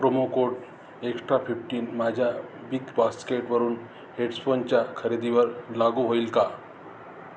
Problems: constant background noise, background conversations at intervals